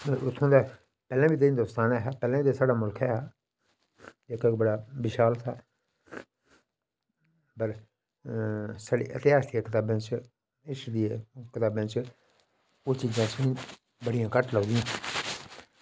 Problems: none marked